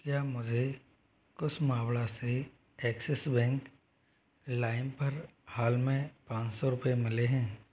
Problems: background sounds at intervals